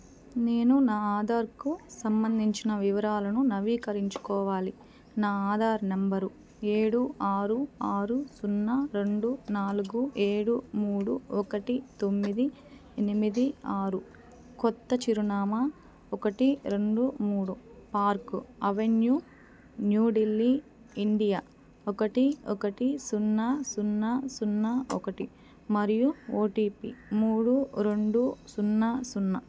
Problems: none marked